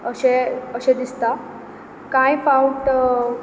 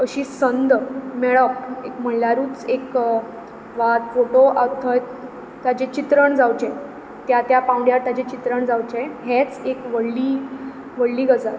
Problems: background sounds at intervals